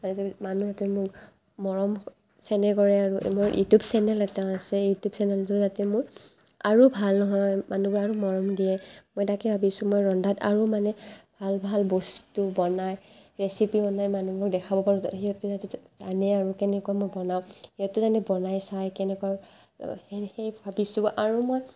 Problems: constant background noise